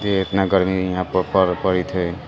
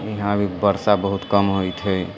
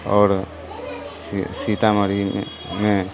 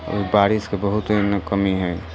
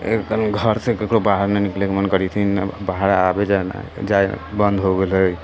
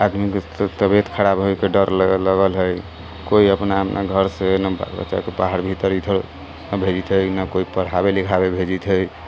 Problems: constant background noise